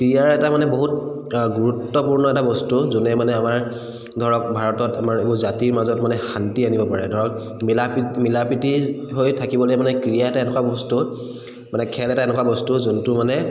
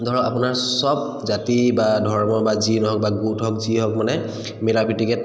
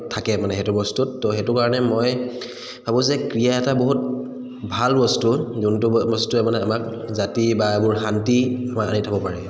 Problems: echo